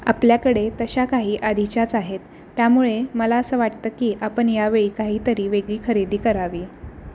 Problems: constant background noise